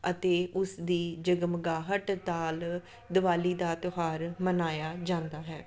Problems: none marked